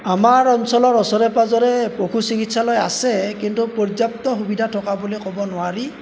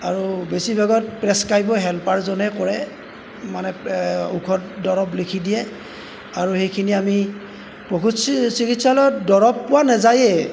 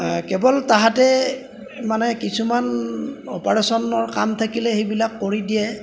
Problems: background sounds at intervals